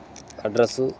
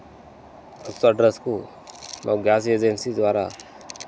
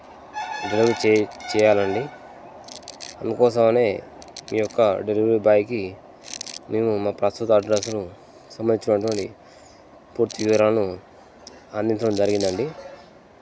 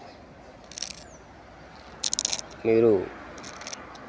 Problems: constant background noise